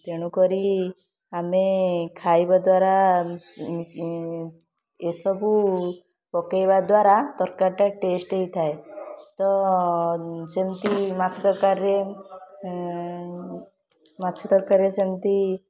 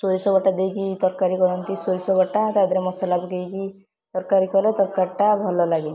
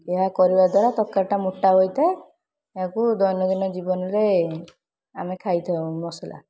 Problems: constant background noise, continuous background conversations